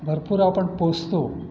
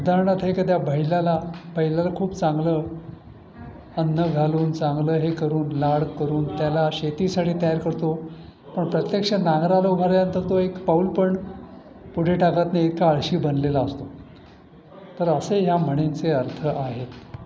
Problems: constant background noise, continuous background conversations